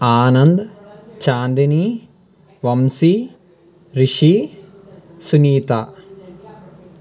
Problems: constant background noise, continuous background conversations